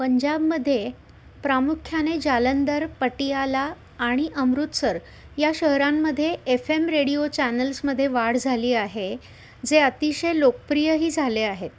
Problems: constant background noise